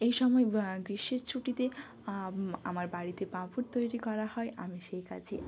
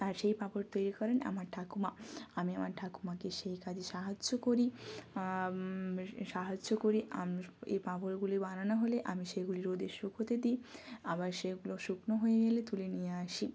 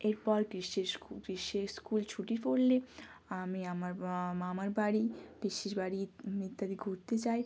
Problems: background sounds at intervals